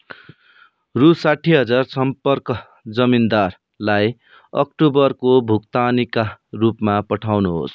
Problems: none marked